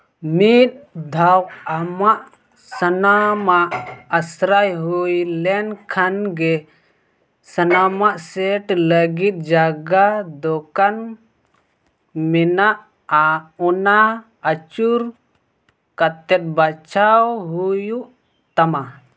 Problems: none marked